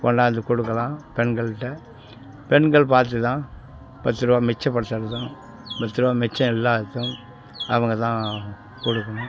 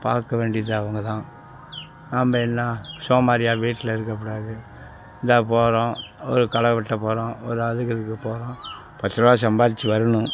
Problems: constant background noise, background conversations at intervals